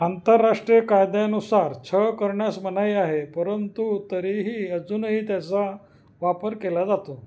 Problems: background sounds at intervals